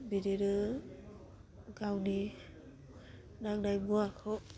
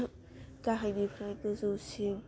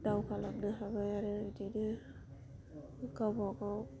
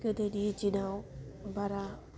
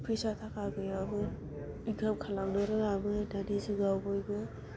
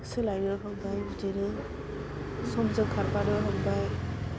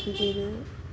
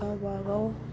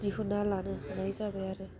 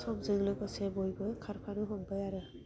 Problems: constant background noise